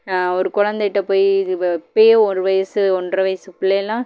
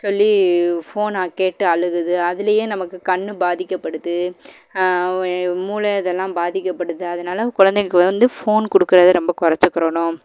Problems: none marked